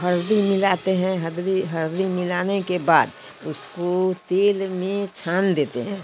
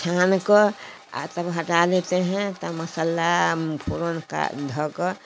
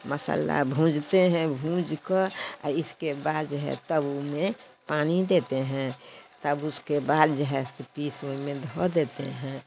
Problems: background sounds at intervals